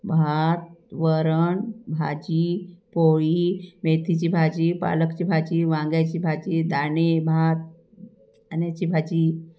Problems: background sounds at intervals